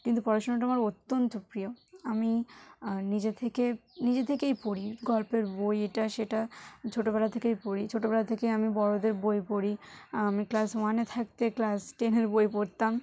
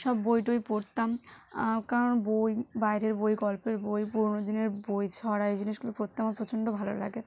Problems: none marked